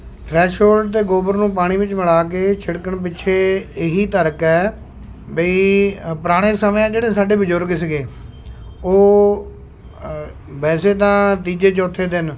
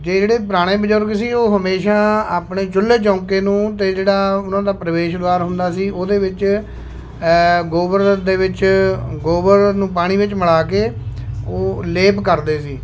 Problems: constant background noise